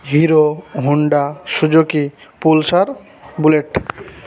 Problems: constant background noise